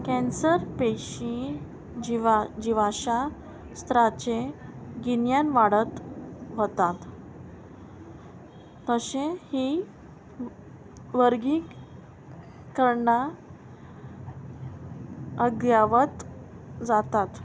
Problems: constant background noise